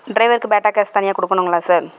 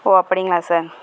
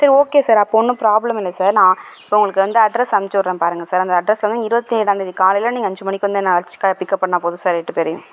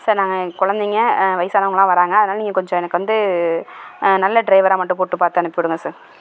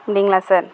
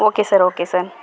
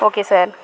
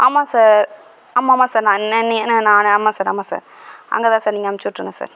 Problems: background sounds at intervals